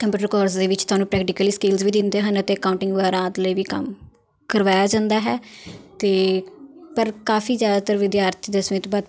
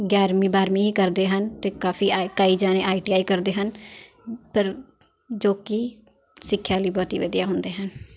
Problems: continuous background conversations